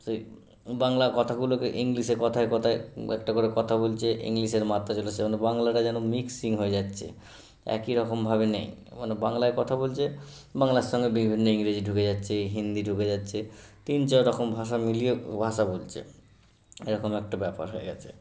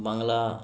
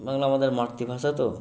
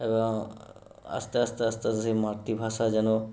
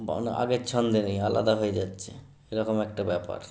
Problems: constant background noise